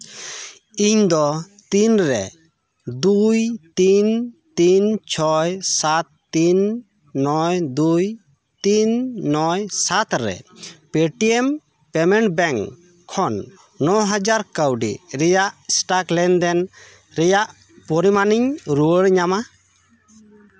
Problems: constant background noise